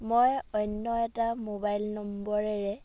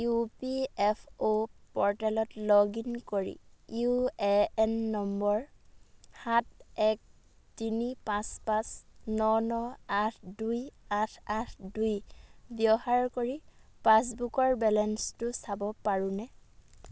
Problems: background sounds at intervals